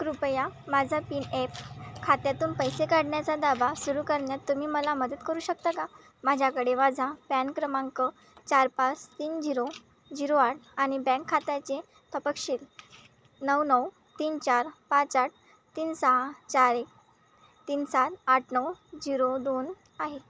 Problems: constant background noise